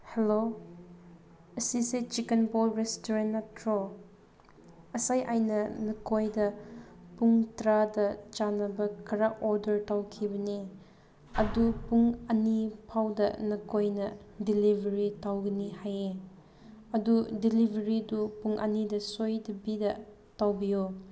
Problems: none marked